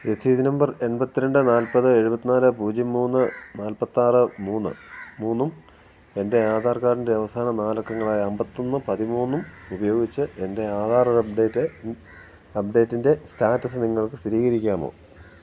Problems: none marked